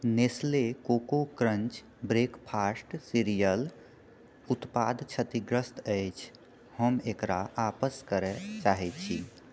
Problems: background sounds at intervals